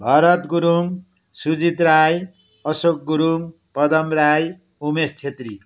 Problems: background sounds at intervals